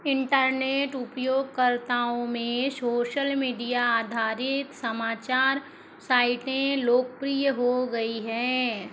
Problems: constant background noise